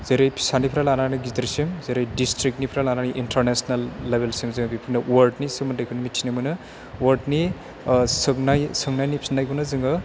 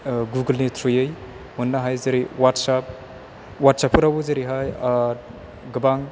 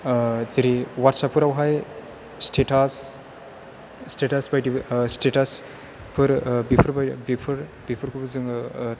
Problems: none marked